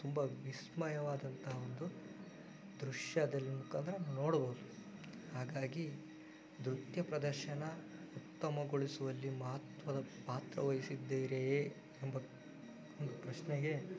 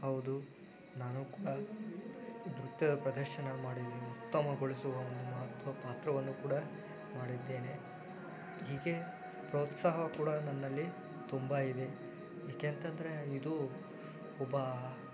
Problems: background sounds at intervals